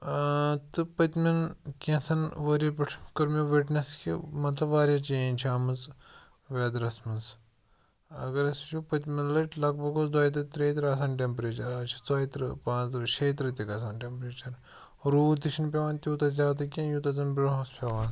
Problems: background sounds at intervals